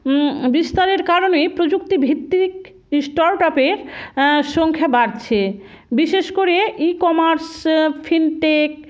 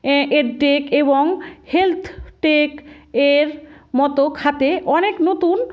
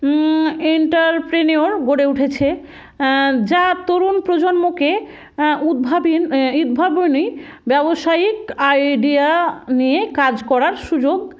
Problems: constant background noise